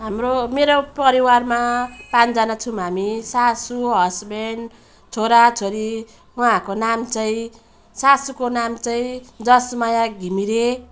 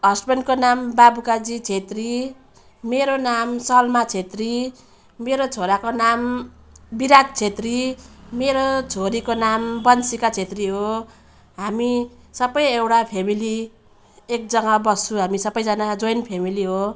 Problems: none marked